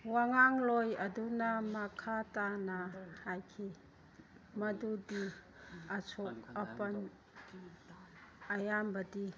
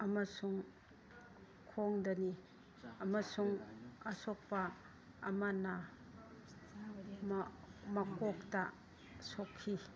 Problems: background sounds at intervals, background conversations at intervals